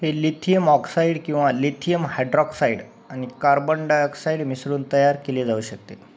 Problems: none marked